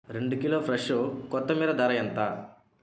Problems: background sounds at intervals